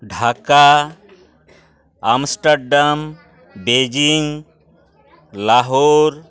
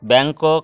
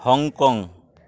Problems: background conversations at intervals